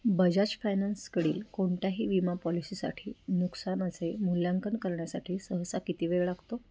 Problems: constant background noise